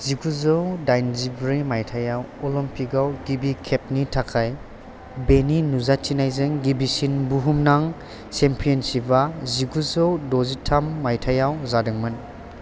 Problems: none marked